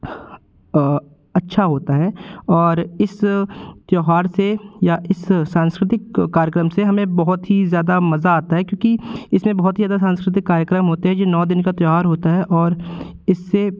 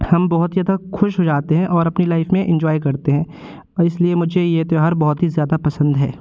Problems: constant background noise, continuous background conversations